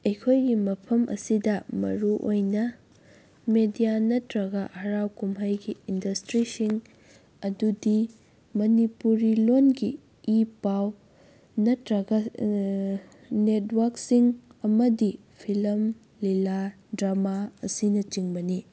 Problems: none marked